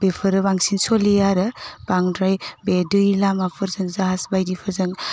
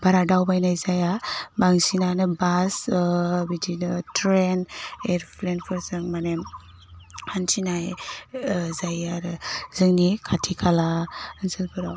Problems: constant background noise